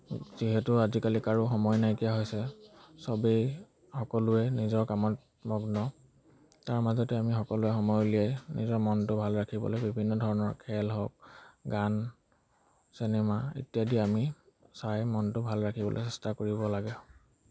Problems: none marked